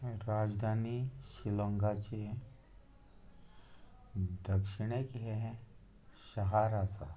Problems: low volume